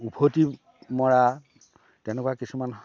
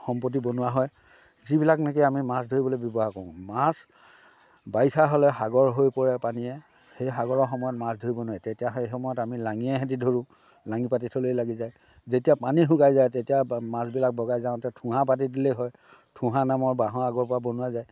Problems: background sounds at intervals, background conversations at intervals